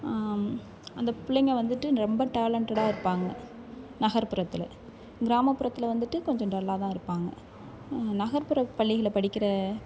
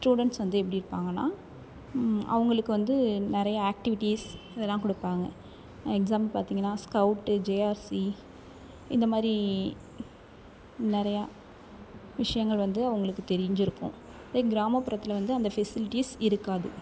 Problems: constant background noise